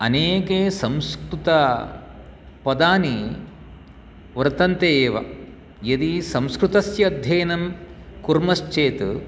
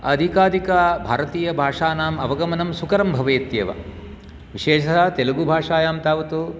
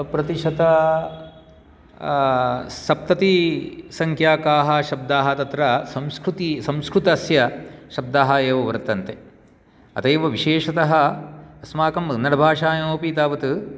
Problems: none marked